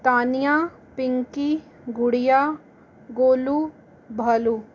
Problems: constant background noise